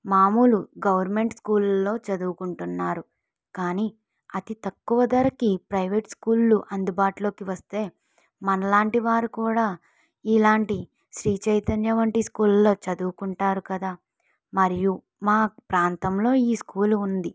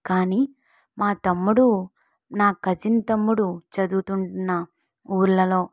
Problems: none marked